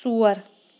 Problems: background sounds at intervals